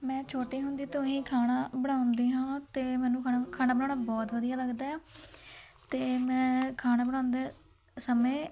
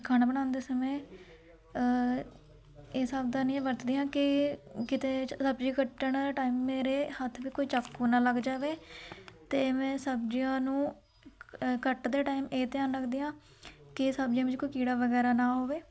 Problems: continuous background conversations